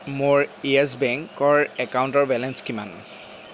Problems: background sounds at intervals